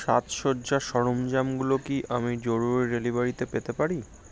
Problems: constant background noise